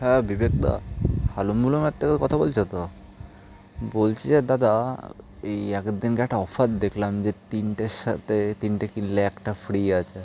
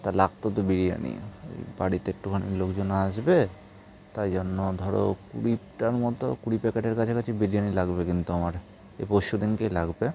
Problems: none marked